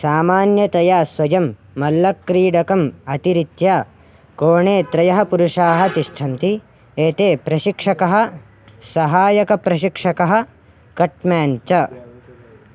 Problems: constant background noise